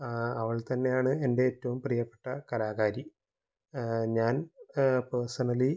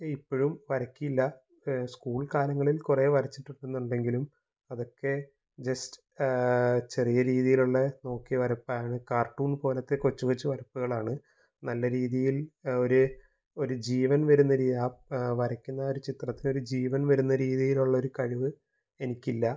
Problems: low volume